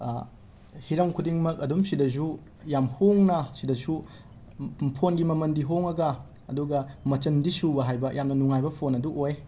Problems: background sounds at intervals